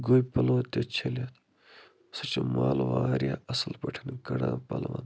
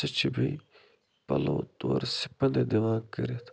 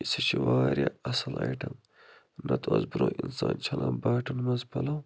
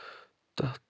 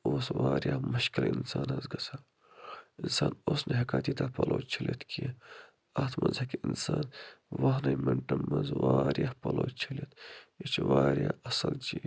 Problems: low volume